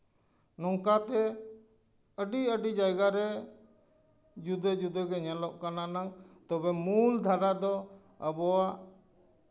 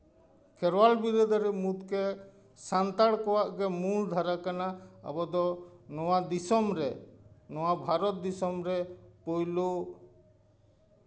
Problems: none marked